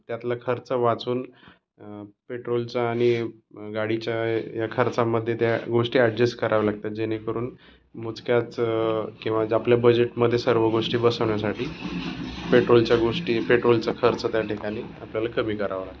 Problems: none marked